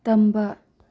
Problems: none marked